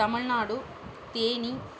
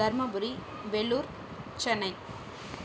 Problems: constant background noise, background conversations at intervals